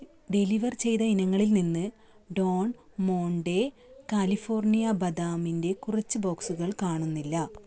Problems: background sounds at intervals